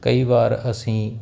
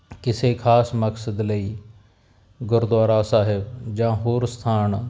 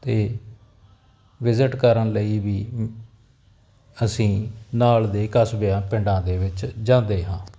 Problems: none marked